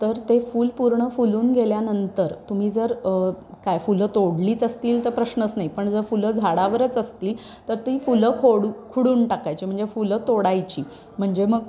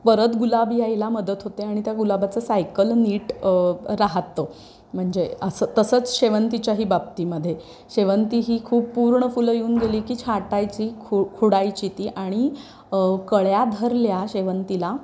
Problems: none marked